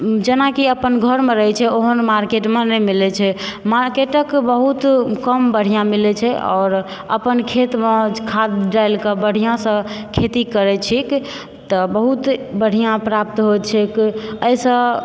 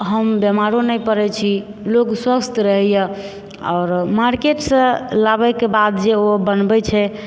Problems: background sounds at intervals